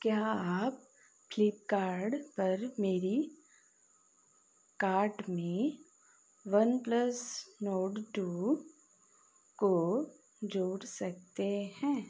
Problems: none marked